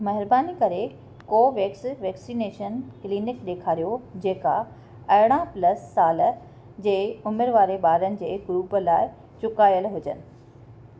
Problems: constant background noise